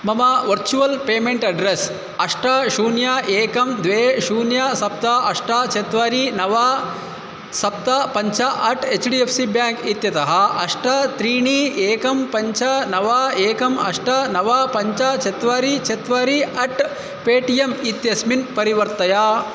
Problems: none marked